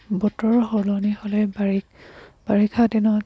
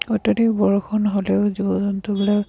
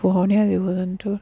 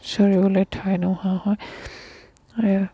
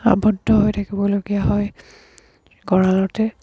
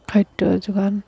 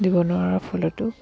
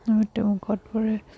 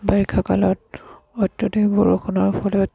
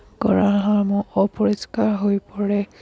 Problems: background sounds at intervals